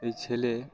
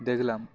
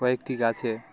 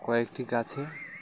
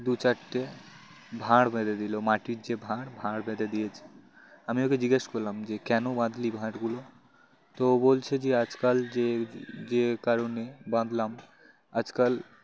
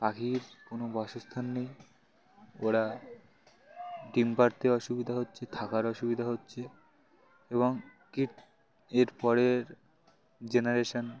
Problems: constant background noise, background conversations at intervals